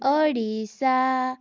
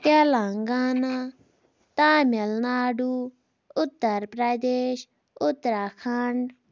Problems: none marked